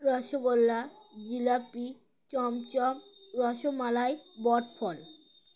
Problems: constant background noise